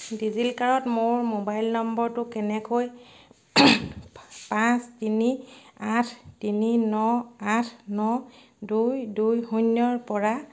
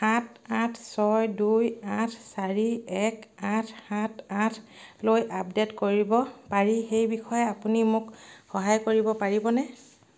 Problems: none marked